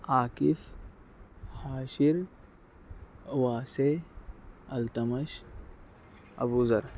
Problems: none marked